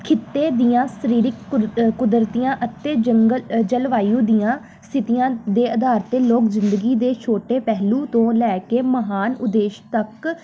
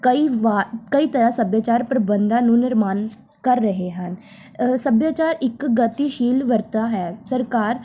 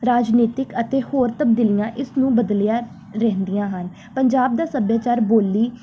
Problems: none marked